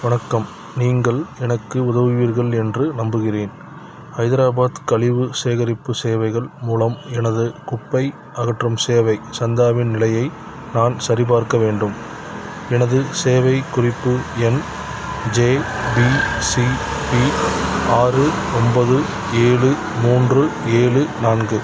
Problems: background sounds at intervals